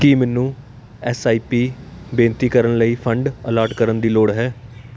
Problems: constant background noise